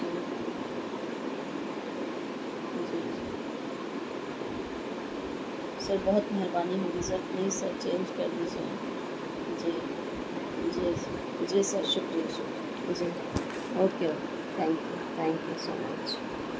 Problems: constant background noise, low volume